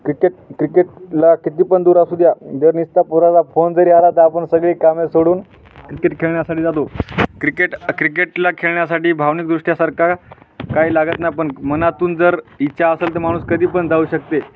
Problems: constant background noise, background conversations at intervals